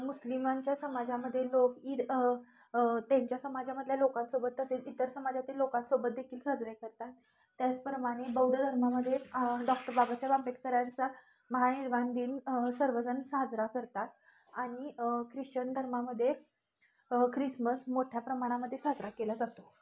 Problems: constant background noise, continuous background conversations